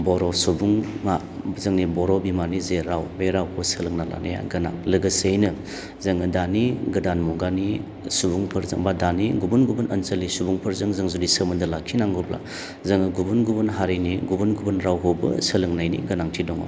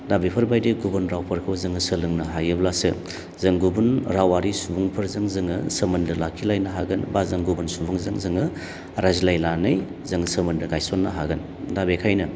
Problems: low volume